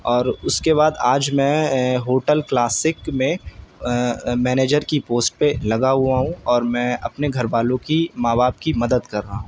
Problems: none marked